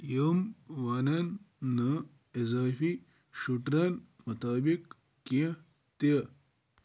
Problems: background sounds at intervals